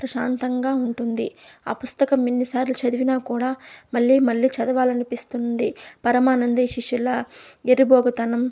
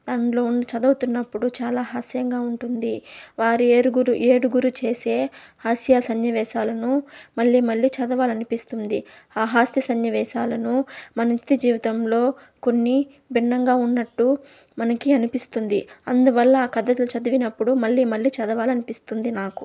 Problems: none marked